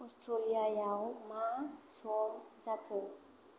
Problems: constant background noise